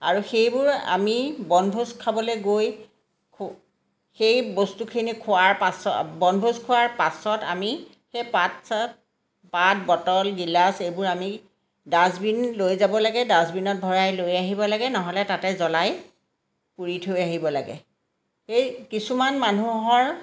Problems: background sounds at intervals, background conversations at intervals